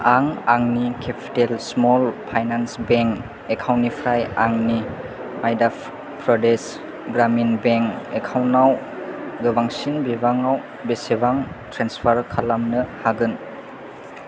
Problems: none marked